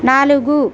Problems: constant background noise